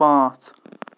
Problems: background sounds at intervals